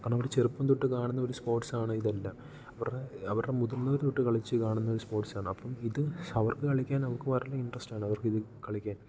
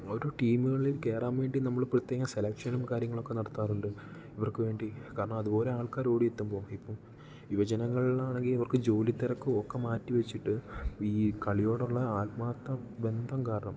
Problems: low volume